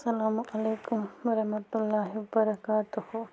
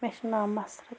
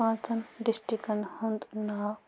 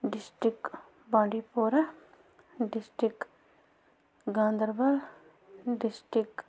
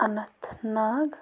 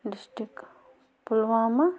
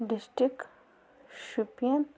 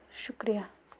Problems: constant background noise